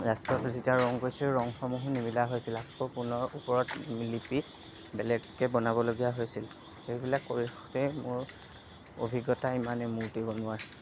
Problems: background sounds at intervals, background conversations at intervals